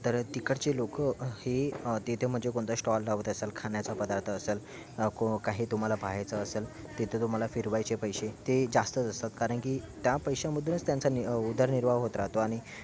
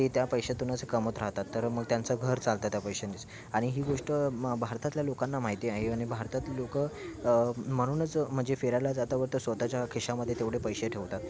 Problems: none marked